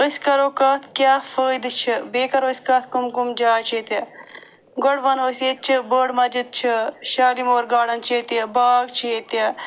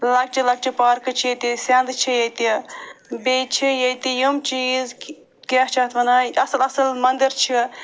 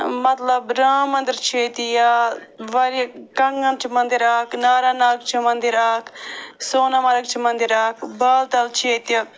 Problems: background sounds at intervals